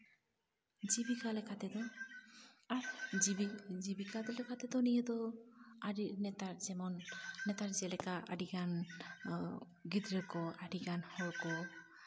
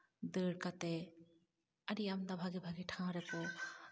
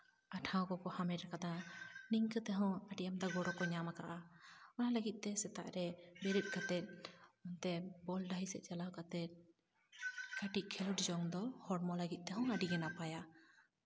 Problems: none marked